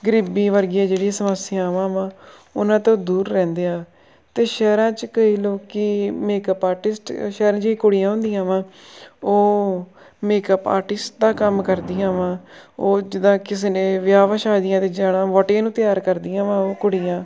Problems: none marked